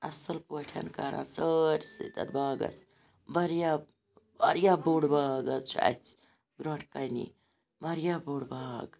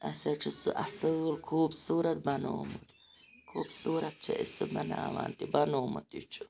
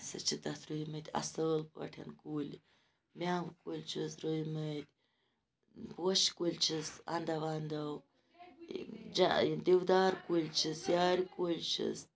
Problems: background sounds at intervals